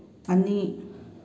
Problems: constant background noise